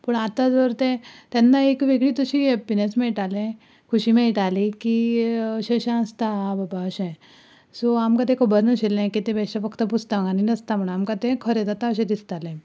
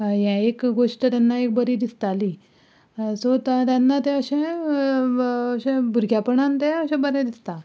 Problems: background sounds at intervals